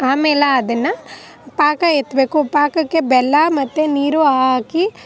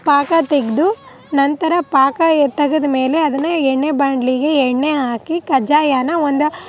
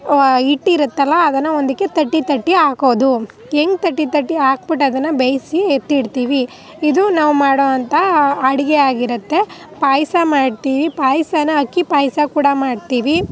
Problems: none marked